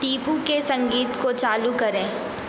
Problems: constant background noise